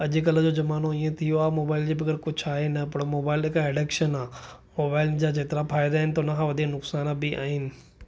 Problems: none marked